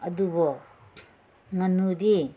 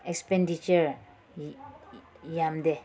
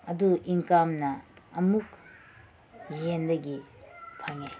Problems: background sounds at intervals